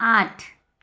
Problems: none marked